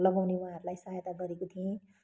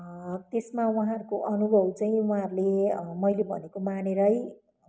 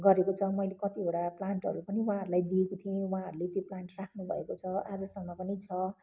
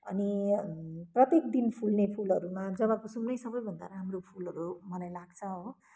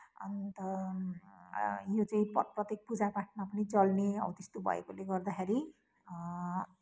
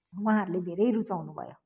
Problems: constant background noise